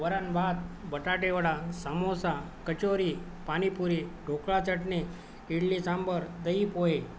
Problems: none marked